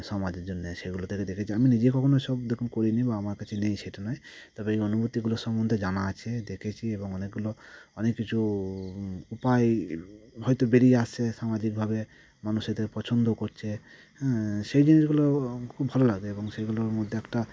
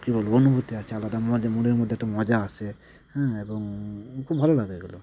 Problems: constant background noise